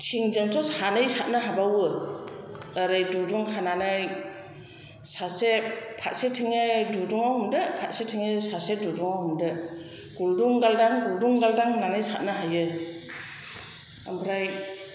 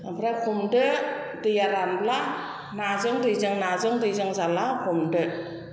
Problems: constant background noise